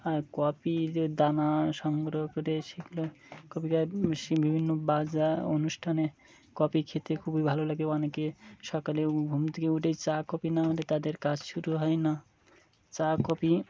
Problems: none marked